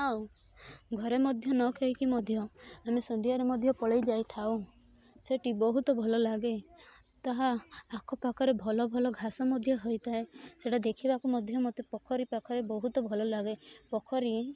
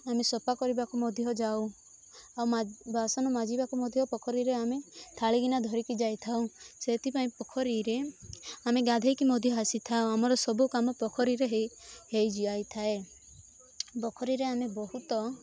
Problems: constant background noise, continuous background conversations